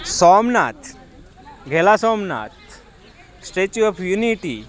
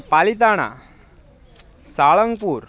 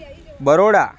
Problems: continuous background conversations